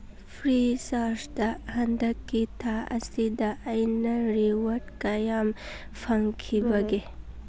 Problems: none marked